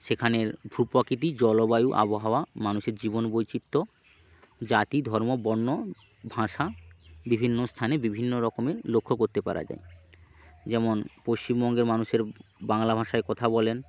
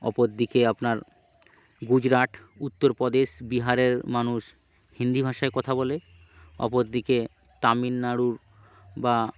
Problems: none marked